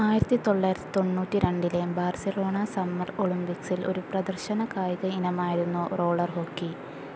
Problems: none marked